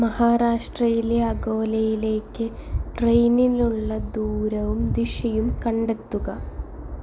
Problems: background sounds at intervals